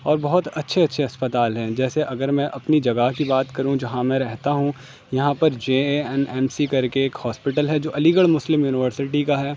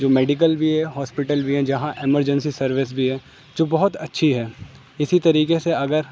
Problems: constant background noise